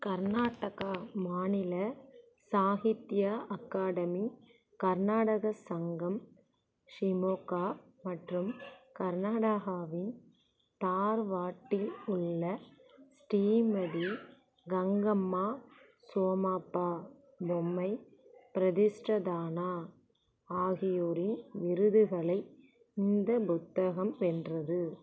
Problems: constant background noise, low volume